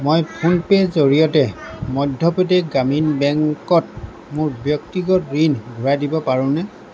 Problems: none marked